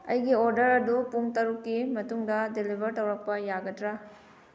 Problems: background sounds at intervals